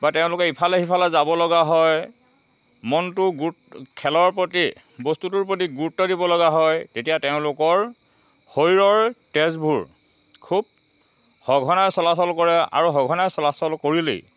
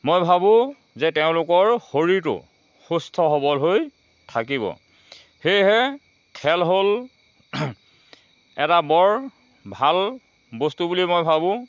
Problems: none marked